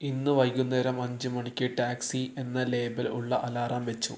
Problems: none marked